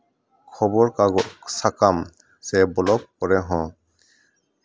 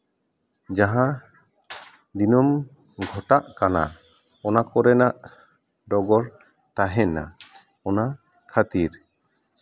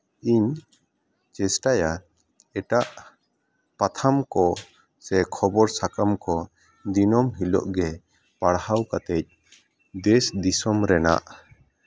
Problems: background conversations at intervals